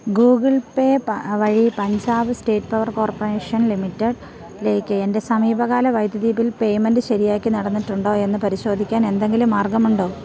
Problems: none marked